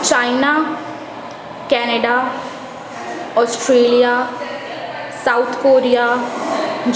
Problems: constant background noise, continuous background conversations